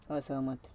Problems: none marked